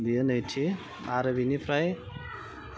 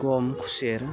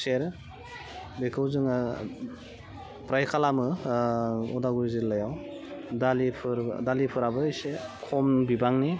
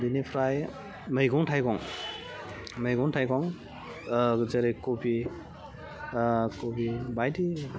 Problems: background sounds at intervals, low volume